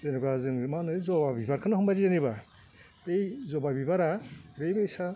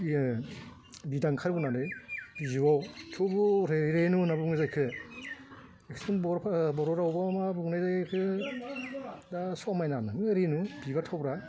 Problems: constant background noise